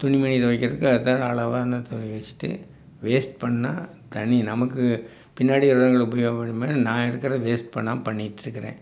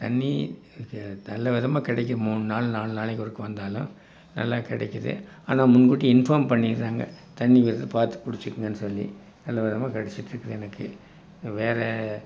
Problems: none marked